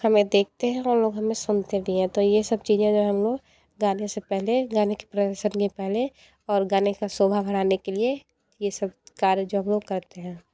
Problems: constant background noise